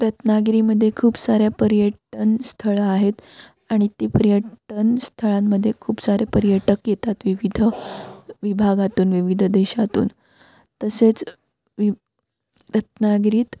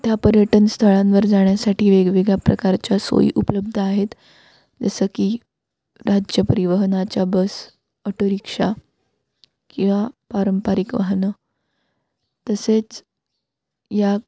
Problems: background sounds at intervals